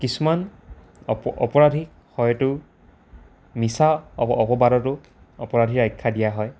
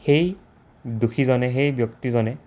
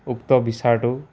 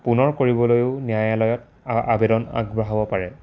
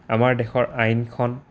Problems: constant background noise